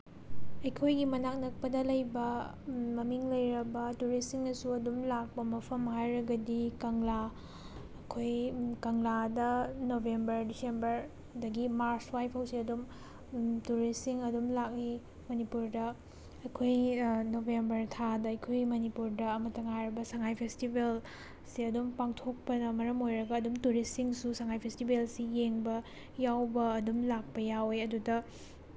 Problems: none marked